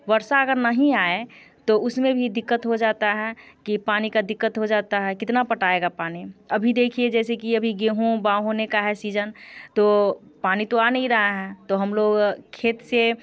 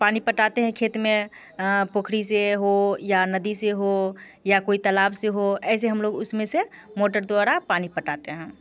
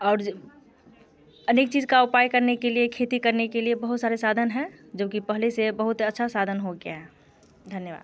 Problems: constant background noise